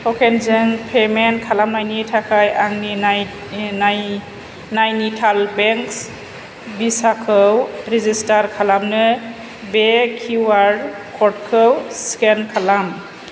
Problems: none marked